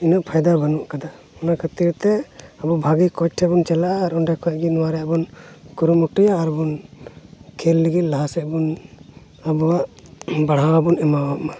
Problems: none marked